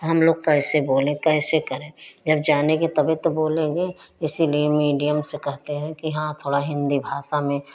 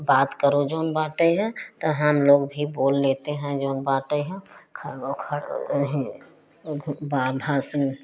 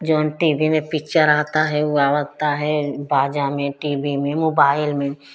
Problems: constant background noise